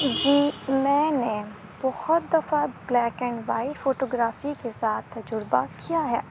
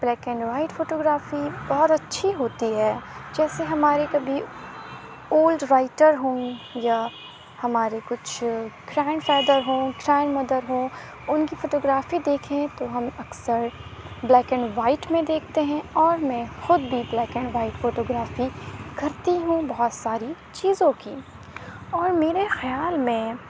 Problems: constant background noise